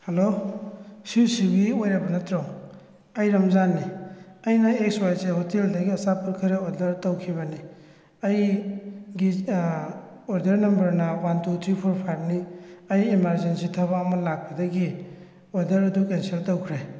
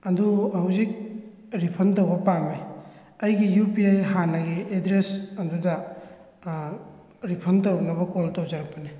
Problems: echo